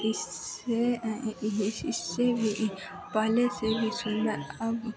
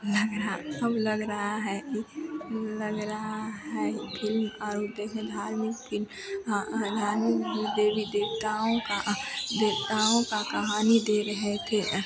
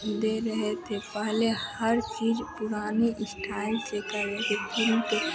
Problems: constant background noise